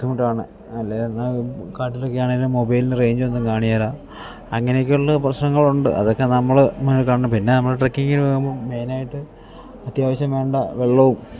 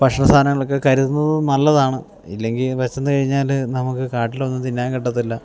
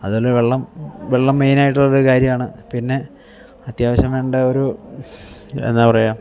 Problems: none marked